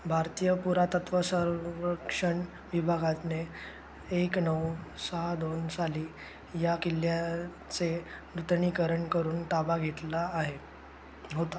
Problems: constant background noise